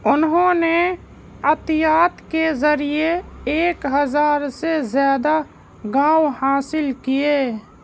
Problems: none marked